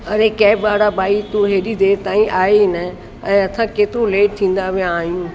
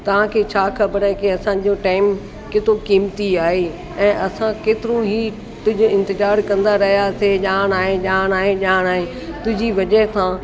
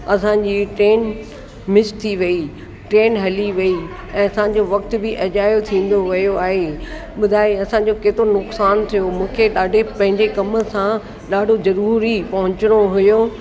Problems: constant background noise, echo